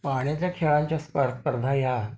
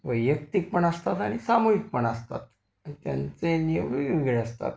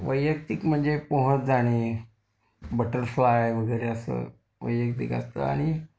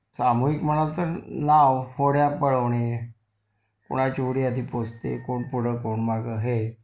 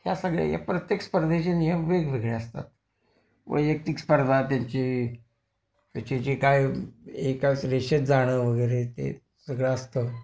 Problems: constant background noise